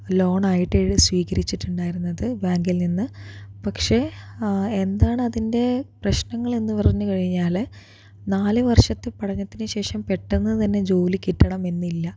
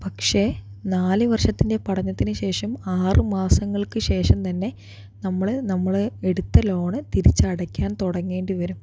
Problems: none marked